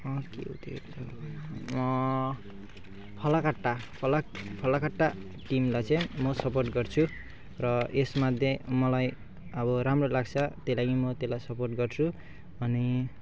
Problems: background sounds at intervals